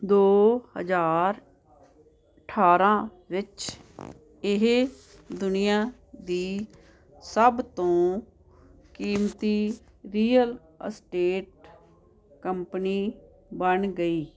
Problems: constant background noise